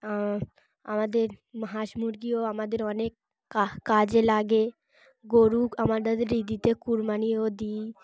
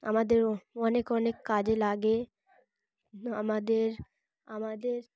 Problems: constant background noise